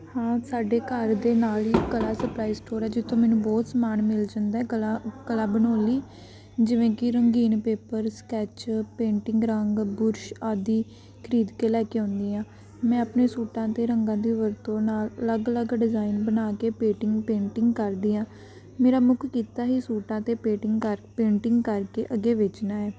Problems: background sounds at intervals